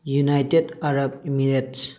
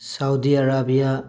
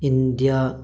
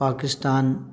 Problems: none marked